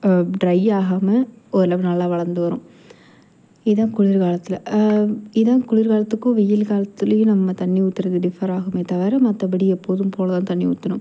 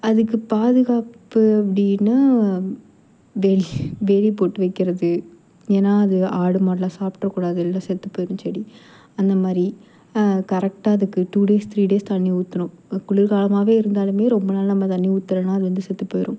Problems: constant background noise